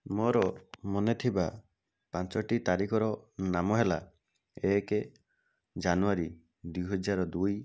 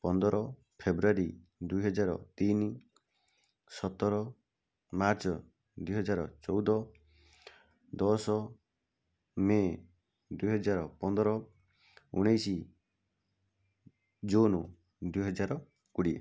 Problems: none marked